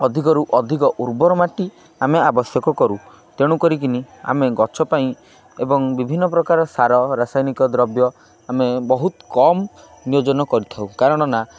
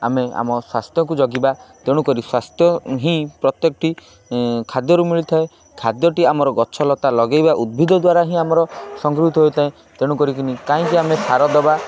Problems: constant background noise, continuous background conversations